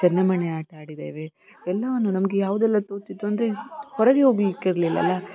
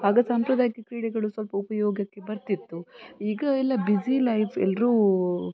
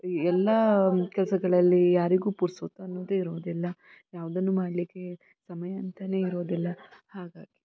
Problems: continuous background conversations